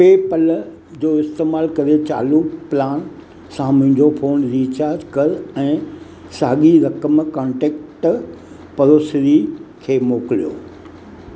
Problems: constant background noise, echo